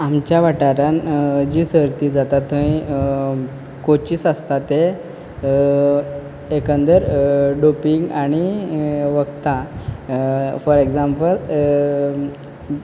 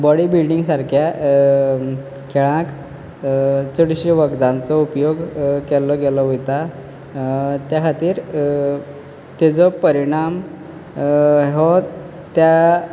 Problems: background sounds at intervals